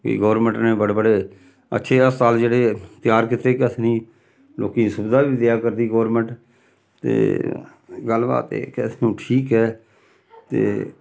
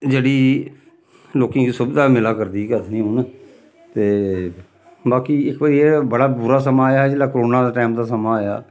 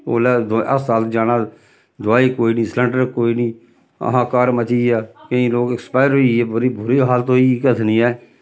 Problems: none marked